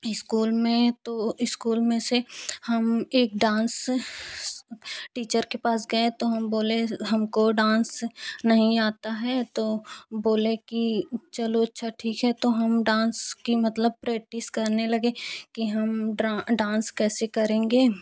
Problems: none marked